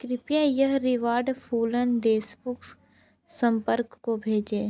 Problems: none marked